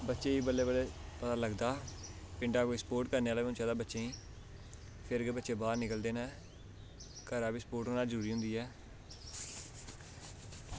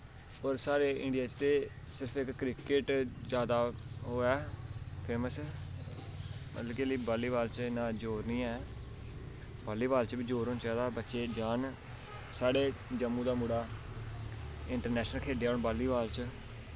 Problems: constant background noise